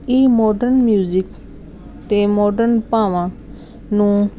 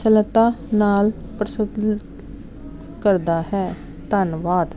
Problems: none marked